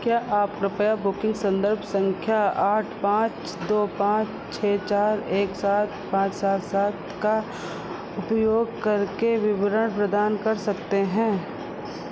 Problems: constant background noise